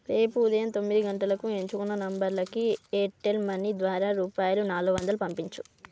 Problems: none marked